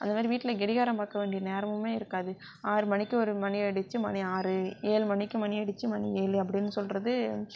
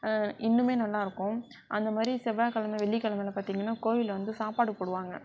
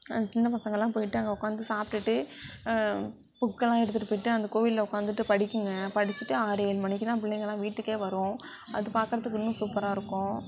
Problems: background sounds at intervals